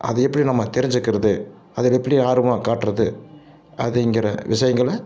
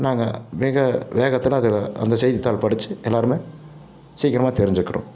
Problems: none marked